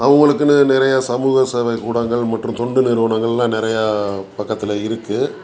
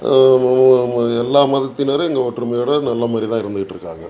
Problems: continuous background conversations